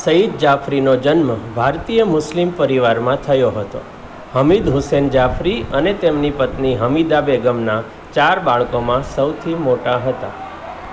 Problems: constant background noise